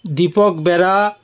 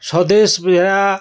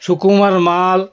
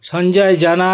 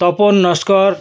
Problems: none marked